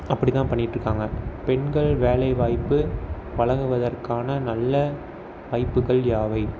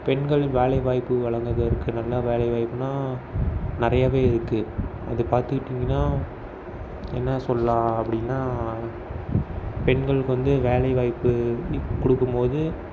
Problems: background sounds at intervals